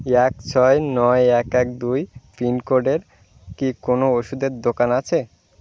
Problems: constant background noise